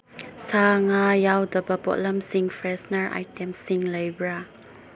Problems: background sounds at intervals, low volume